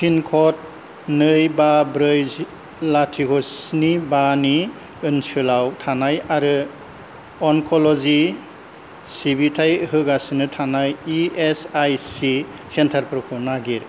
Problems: low volume